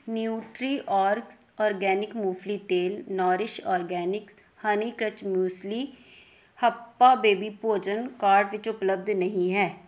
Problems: background sounds at intervals